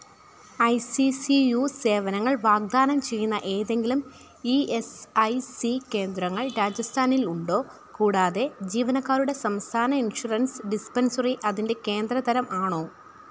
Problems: none marked